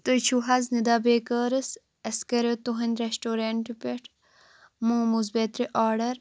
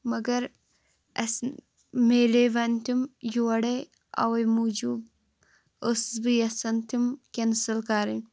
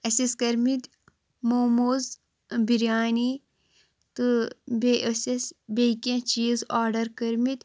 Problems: constant background noise